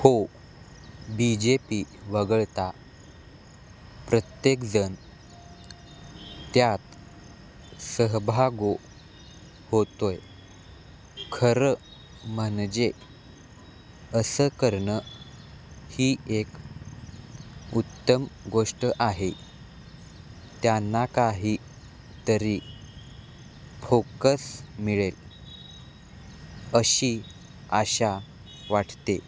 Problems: constant background noise